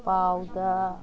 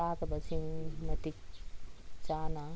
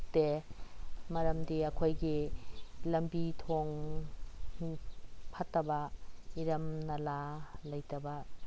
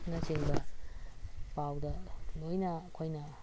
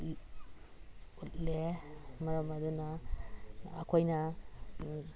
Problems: constant background noise, background conversations at intervals